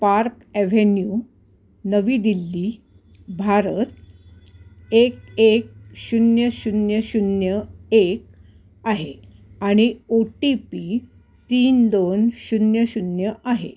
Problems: constant background noise